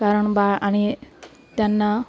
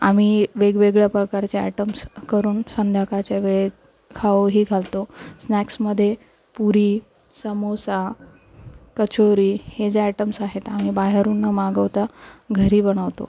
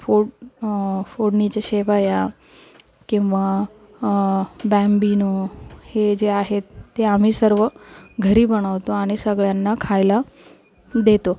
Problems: constant background noise, background conversations at intervals, low volume